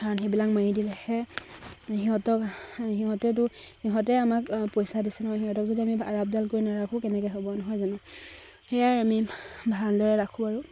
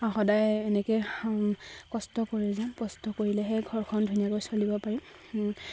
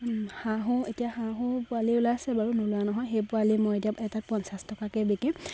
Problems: constant background noise, background conversations at intervals